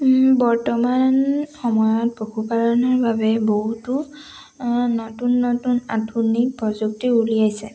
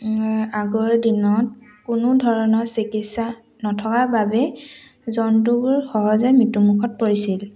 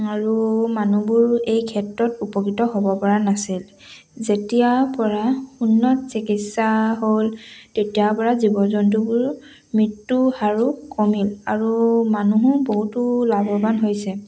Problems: background sounds at intervals